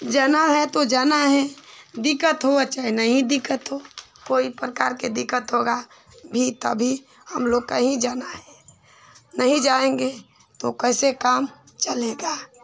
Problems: constant background noise